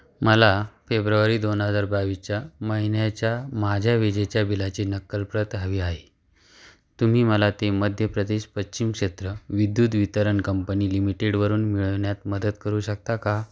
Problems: none marked